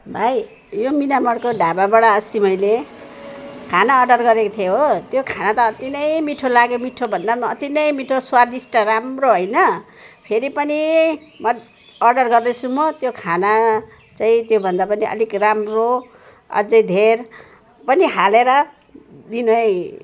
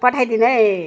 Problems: none marked